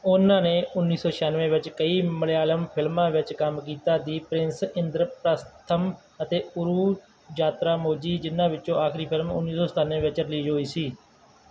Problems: constant background noise